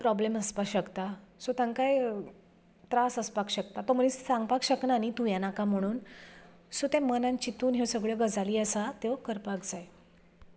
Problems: background sounds at intervals